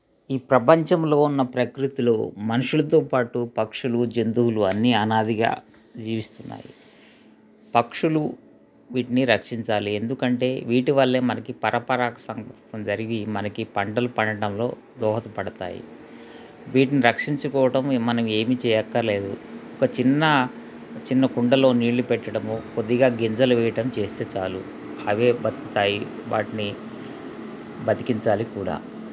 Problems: constant background noise